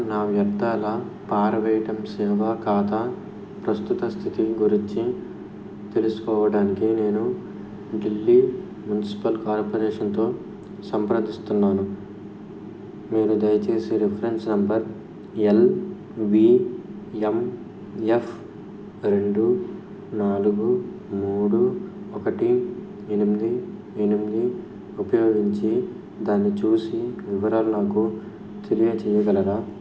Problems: constant background noise